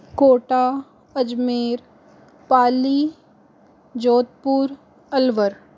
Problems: constant background noise